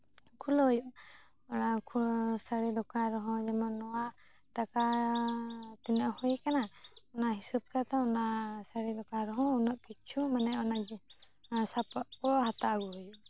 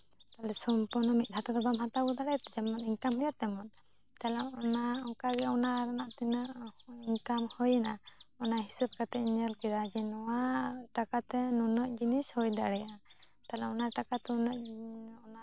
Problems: none marked